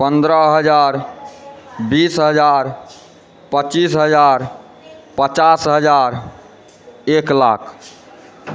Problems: background sounds at intervals